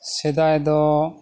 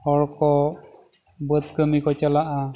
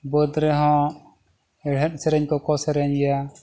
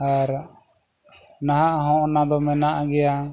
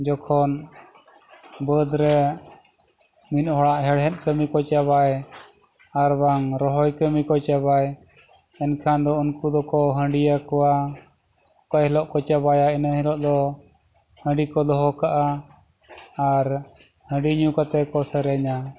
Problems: background sounds at intervals